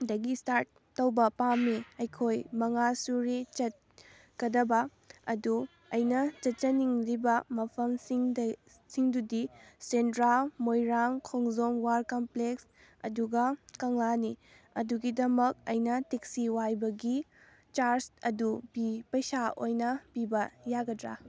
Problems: background sounds at intervals, background conversations at intervals